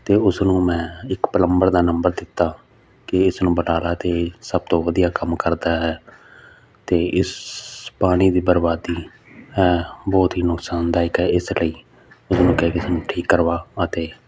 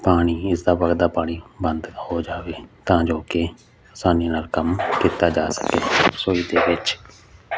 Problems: none marked